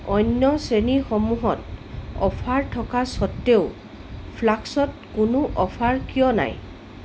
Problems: constant background noise